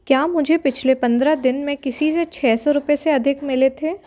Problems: none marked